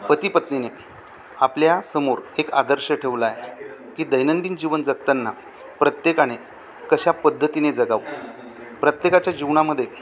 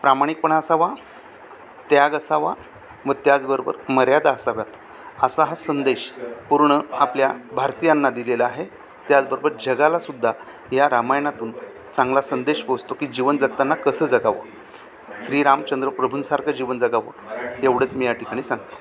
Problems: constant background noise, continuous background conversations